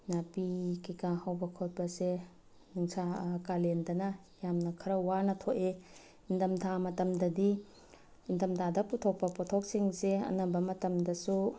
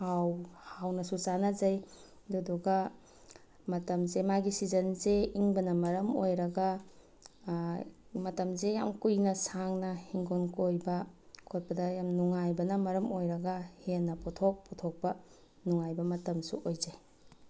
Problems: background sounds at intervals